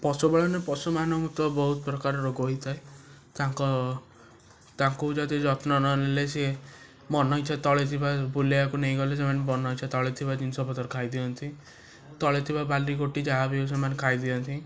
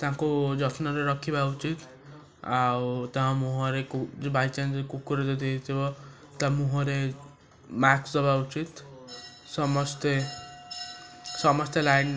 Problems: constant background noise, background conversations at intervals